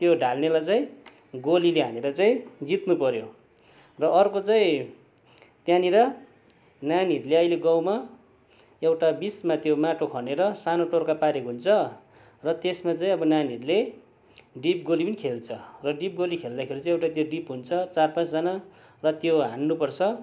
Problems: constant background noise